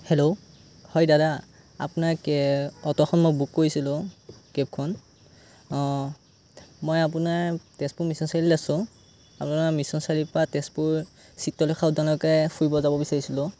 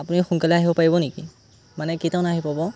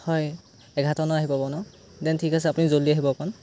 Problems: none marked